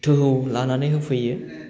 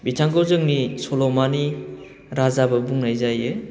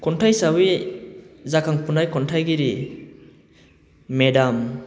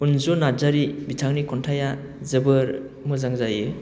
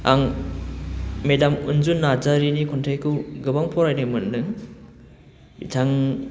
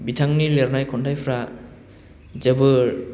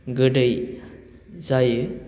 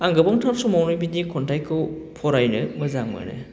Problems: none marked